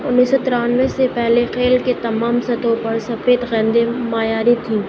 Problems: constant background noise